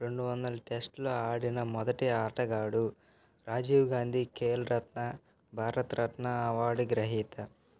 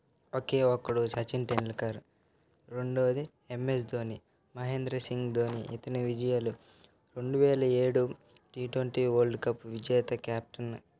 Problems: constant background noise, continuous background conversations